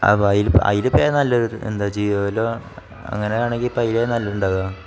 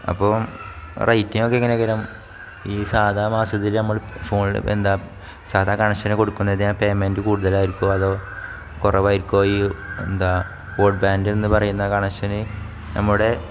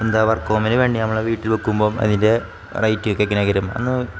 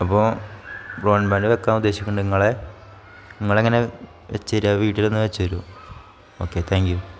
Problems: none marked